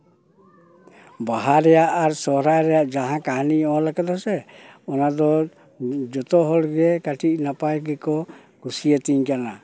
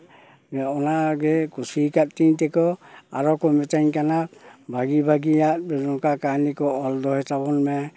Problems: background sounds at intervals